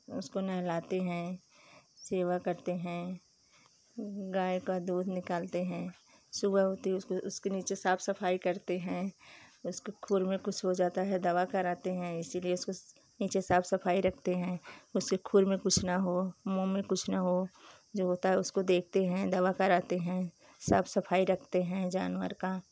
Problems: none marked